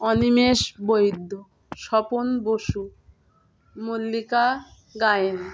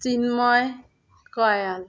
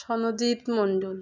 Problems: none marked